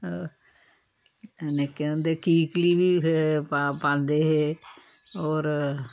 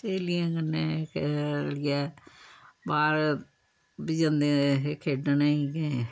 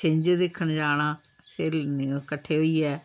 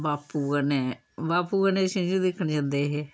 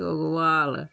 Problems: background sounds at intervals, background conversations at intervals